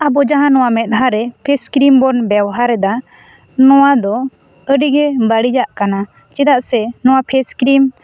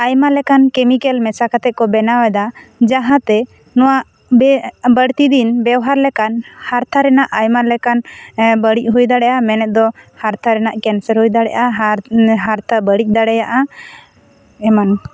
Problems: background conversations at intervals